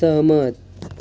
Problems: constant background noise